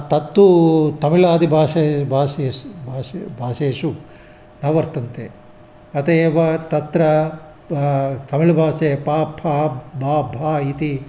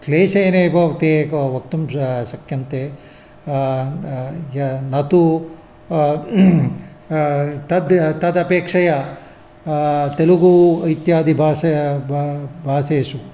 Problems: none marked